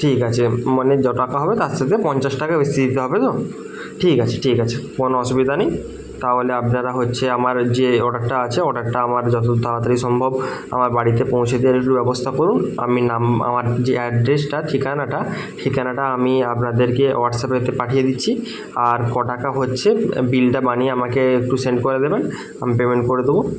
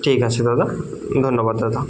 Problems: background conversations at intervals